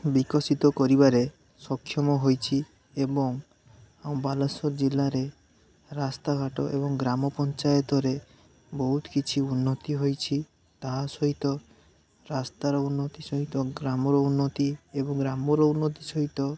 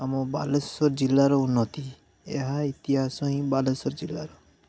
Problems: none marked